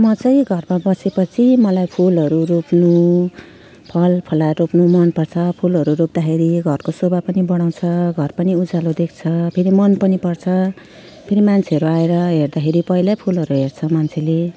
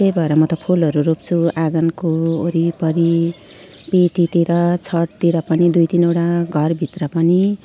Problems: none marked